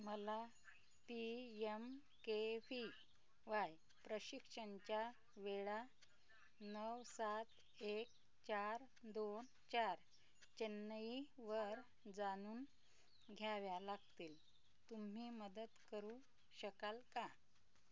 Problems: background sounds at intervals, low volume